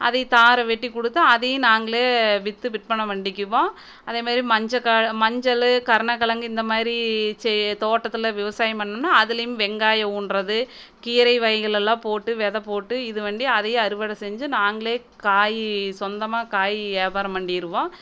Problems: none marked